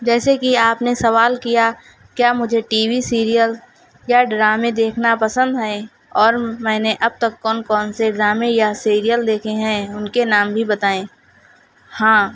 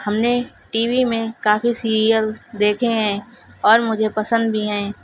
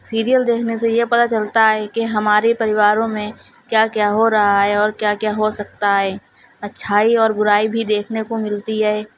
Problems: constant background noise